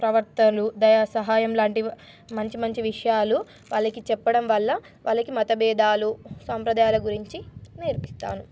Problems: none marked